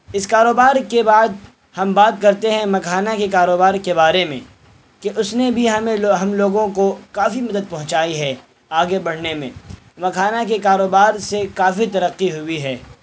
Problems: constant background noise